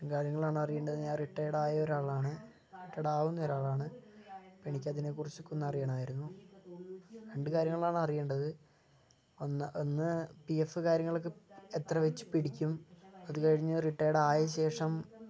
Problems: low volume